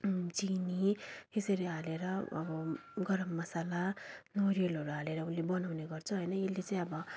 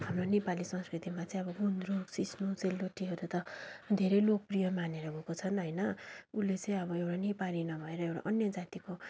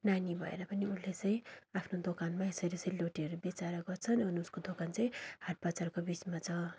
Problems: continuous background conversations